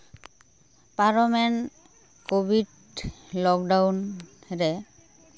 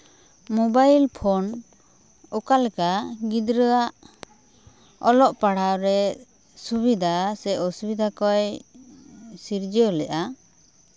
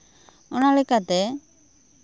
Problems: none marked